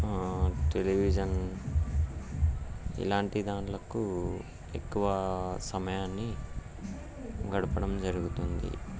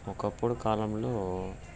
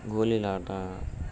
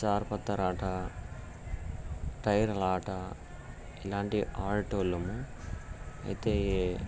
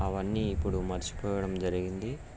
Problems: background sounds at intervals